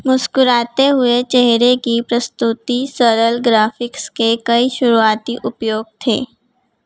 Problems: constant background noise